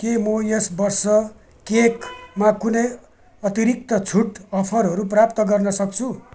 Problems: background sounds at intervals